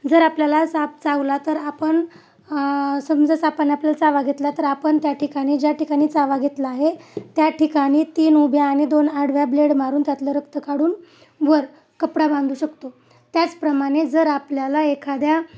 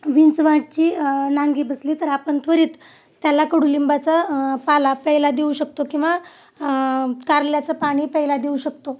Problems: none marked